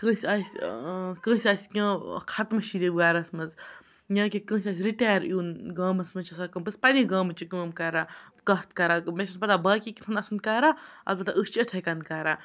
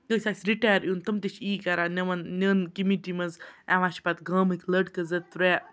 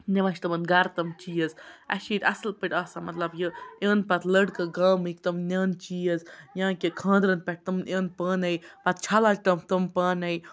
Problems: background sounds at intervals, background conversations at intervals